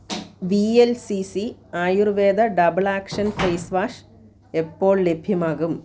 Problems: none marked